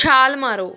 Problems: background conversations at intervals